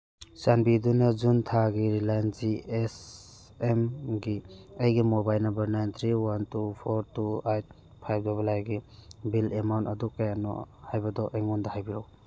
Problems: none marked